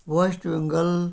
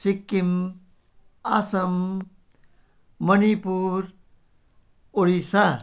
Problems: background sounds at intervals